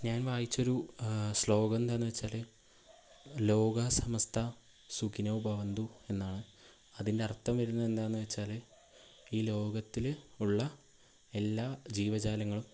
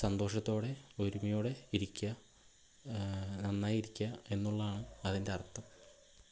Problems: none marked